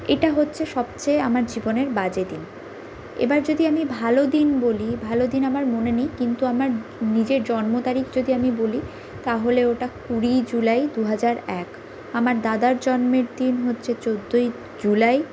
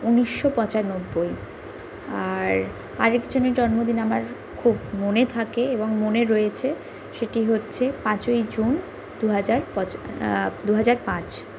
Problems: none marked